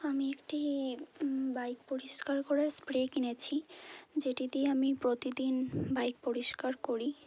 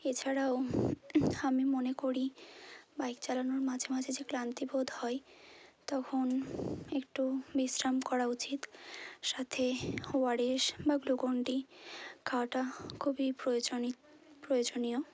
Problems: none marked